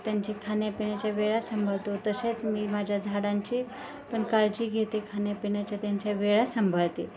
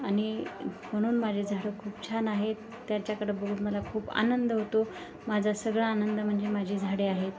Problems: constant background noise, continuous background conversations